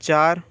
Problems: constant background noise